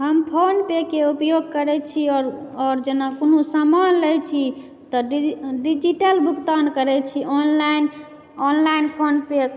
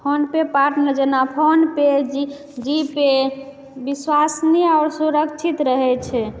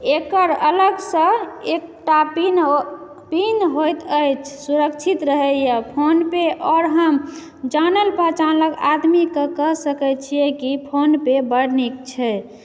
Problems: none marked